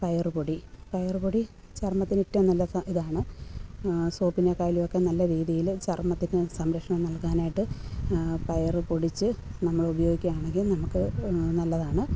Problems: background sounds at intervals, low volume